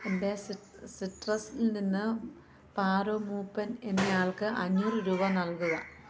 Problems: none marked